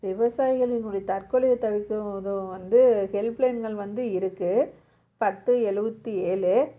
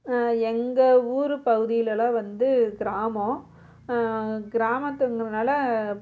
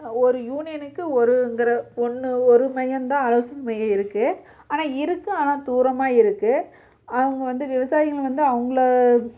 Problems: none marked